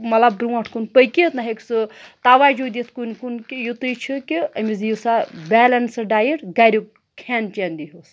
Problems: none marked